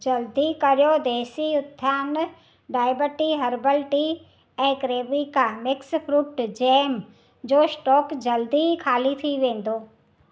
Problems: none marked